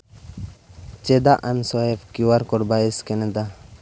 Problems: background sounds at intervals